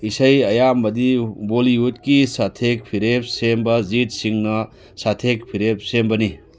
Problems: background sounds at intervals